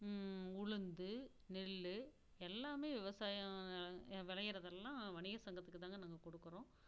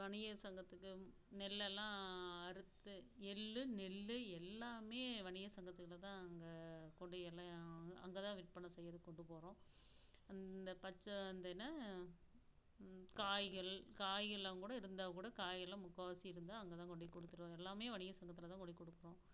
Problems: low volume